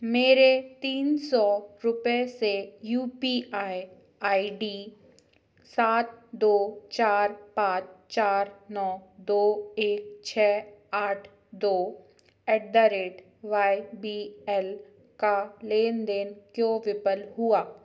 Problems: none marked